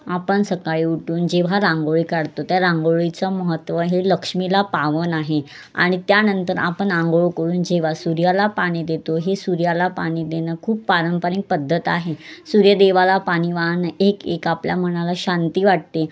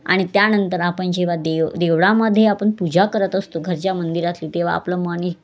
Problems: constant background noise, background conversations at intervals